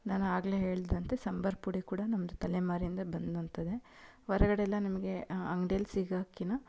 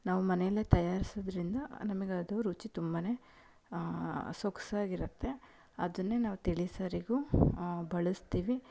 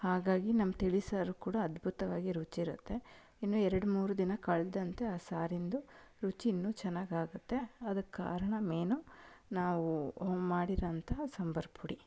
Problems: none marked